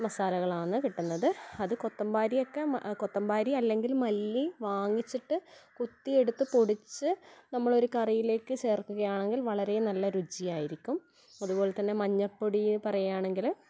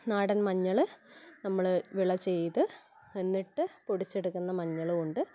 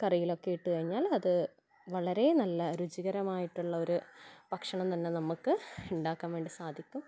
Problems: background sounds at intervals